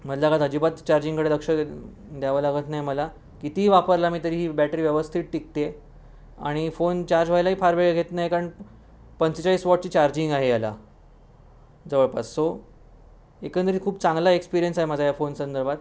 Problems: none marked